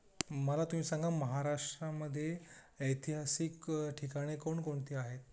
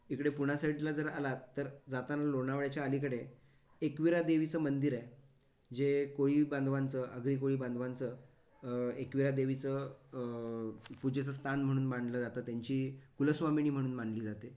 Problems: background sounds at intervals